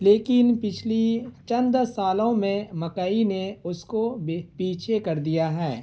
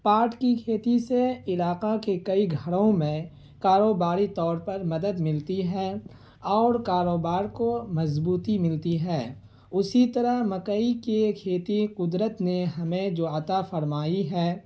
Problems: constant background noise